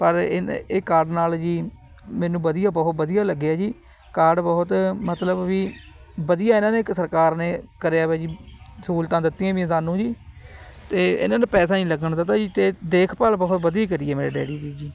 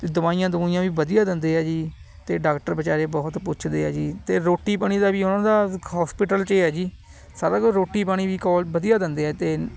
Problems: none marked